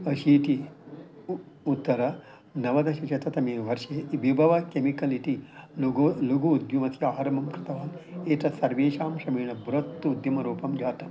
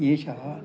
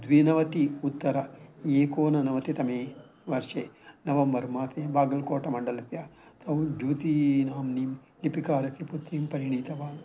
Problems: background sounds at intervals